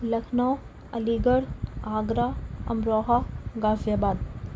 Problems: constant background noise